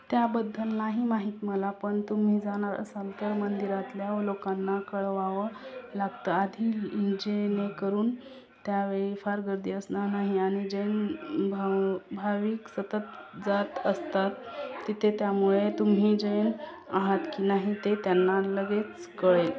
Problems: constant background noise, background conversations at intervals